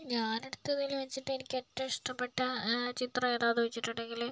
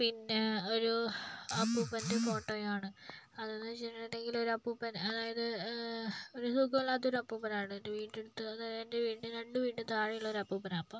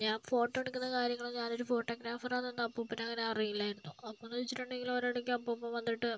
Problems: low volume